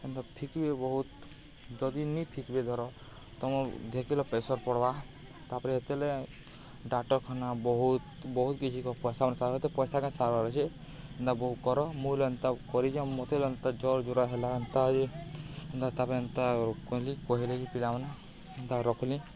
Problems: none marked